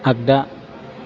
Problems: constant background noise